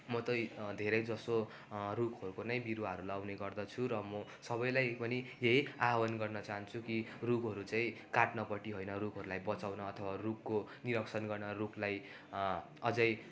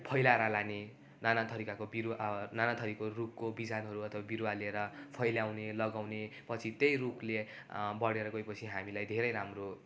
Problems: constant background noise